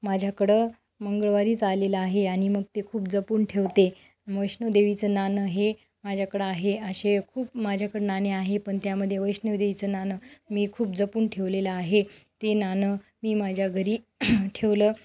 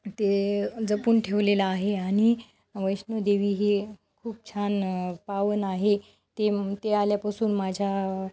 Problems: background sounds at intervals